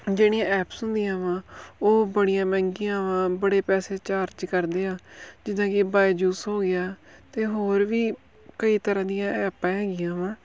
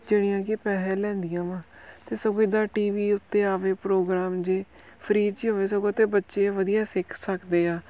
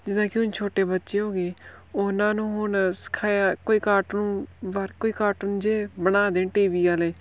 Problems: background sounds at intervals